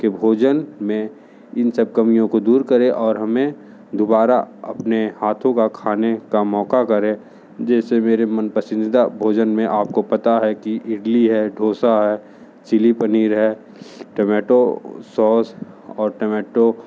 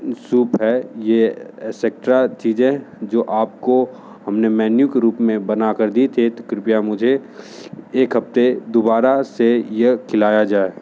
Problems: none marked